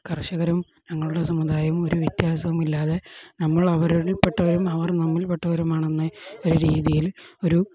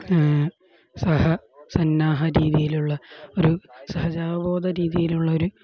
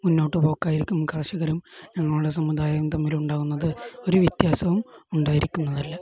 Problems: background conversations at intervals